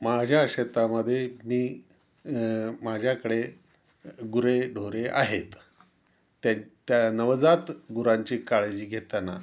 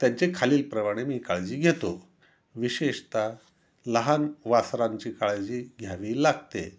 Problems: background sounds at intervals